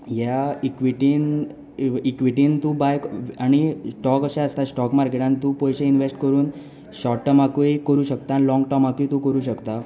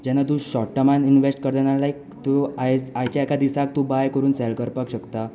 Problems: none marked